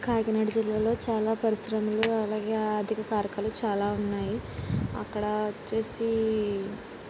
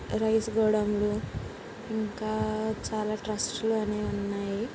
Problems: constant background noise, low volume